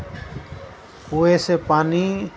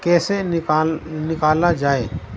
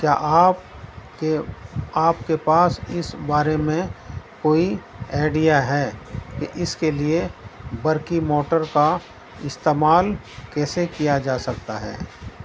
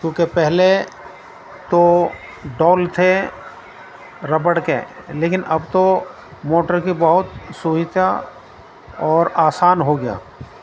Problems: constant background noise